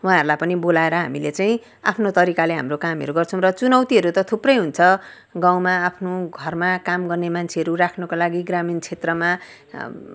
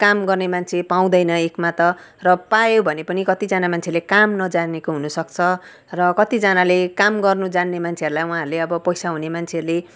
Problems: background sounds at intervals